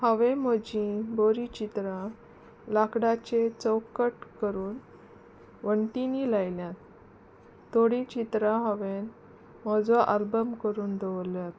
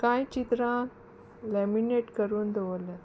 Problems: constant background noise